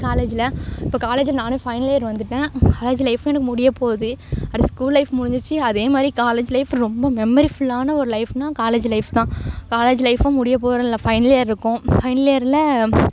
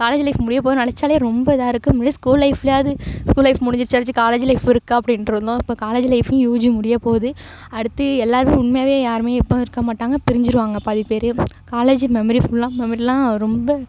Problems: background sounds at intervals